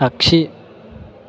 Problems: none marked